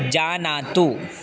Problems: background sounds at intervals